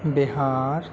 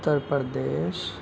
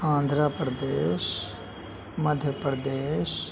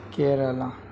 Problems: constant background noise, background conversations at intervals, low volume